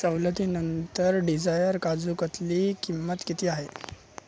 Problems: none marked